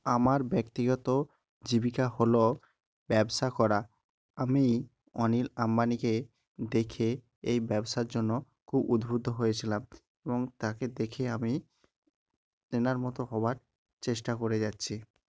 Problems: none marked